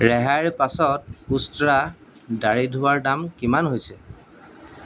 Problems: none marked